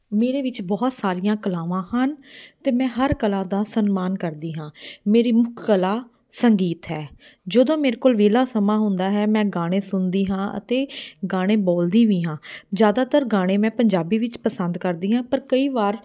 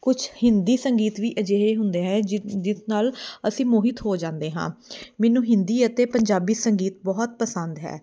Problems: none marked